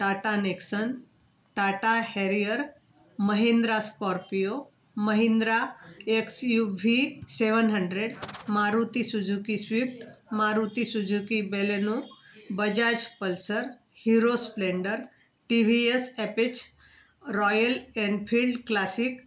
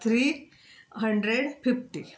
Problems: constant background noise